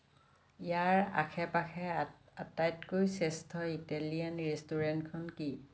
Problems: none marked